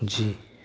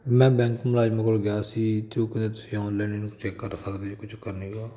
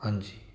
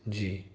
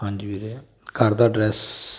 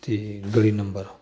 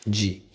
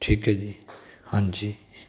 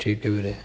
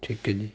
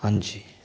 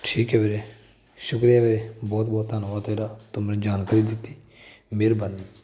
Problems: none marked